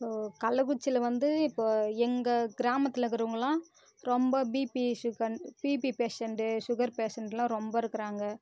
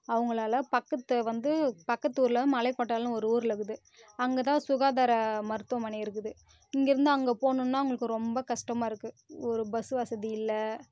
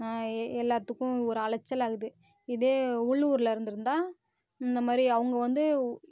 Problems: constant background noise